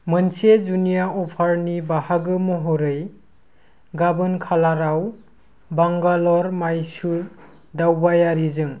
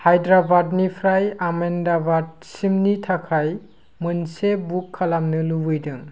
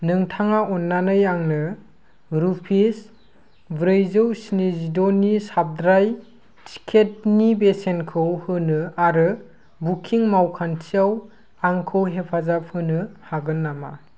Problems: constant background noise